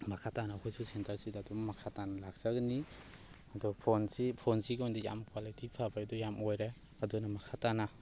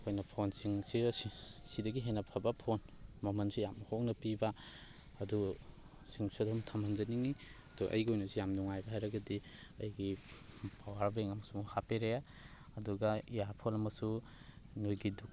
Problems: background sounds at intervals, background conversations at intervals